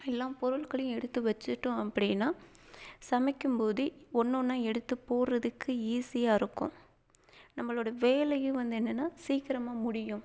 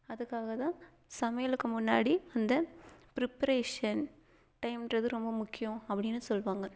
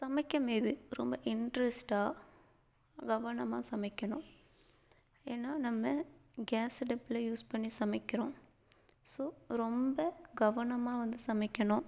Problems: background sounds at intervals, low volume